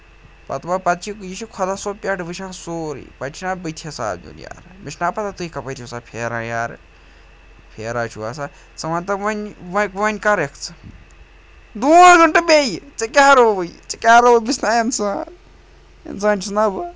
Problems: none marked